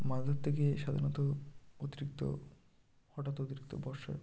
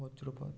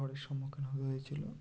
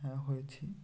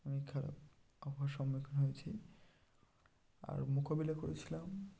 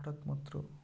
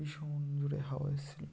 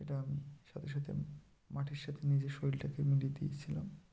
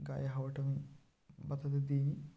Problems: none marked